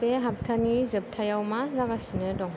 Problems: low volume